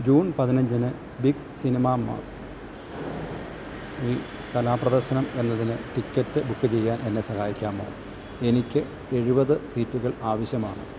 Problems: constant background noise